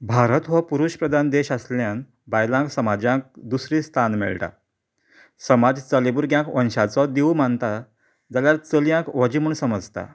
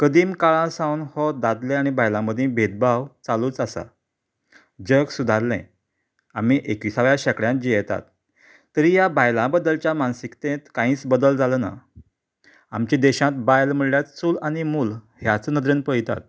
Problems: background sounds at intervals